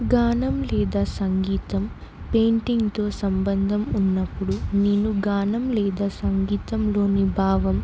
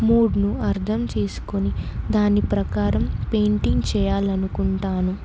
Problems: constant background noise